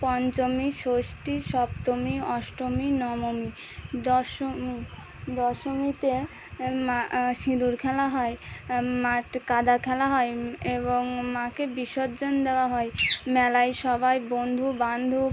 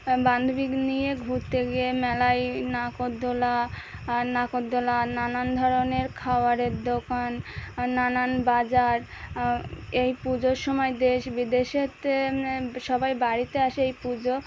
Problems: none marked